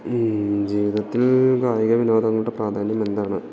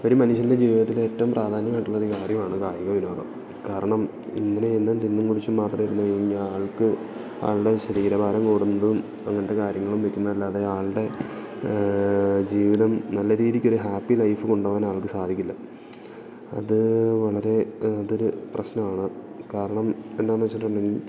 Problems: background sounds at intervals